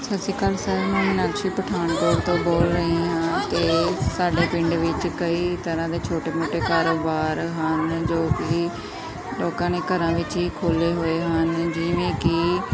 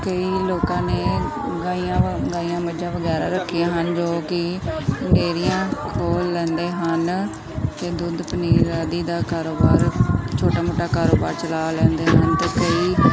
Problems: continuous background conversations